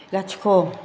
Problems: none marked